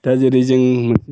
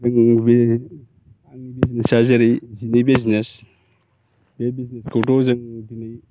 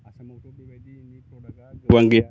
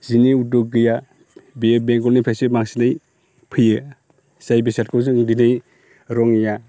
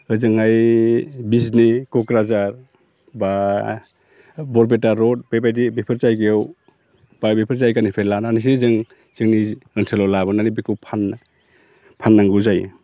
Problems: constant background noise